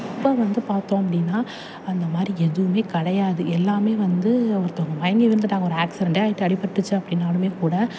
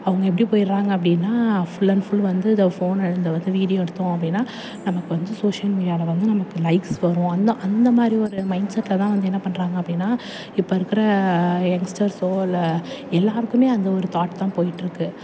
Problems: none marked